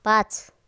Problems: none marked